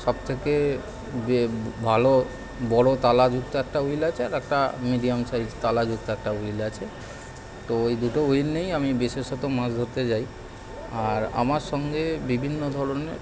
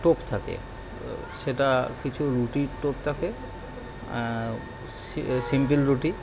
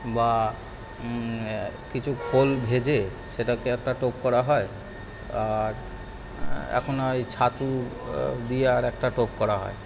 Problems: constant background noise